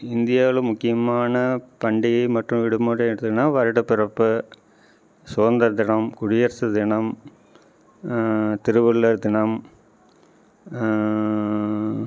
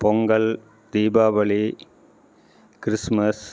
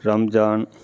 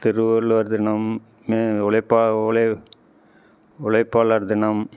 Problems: background conversations at intervals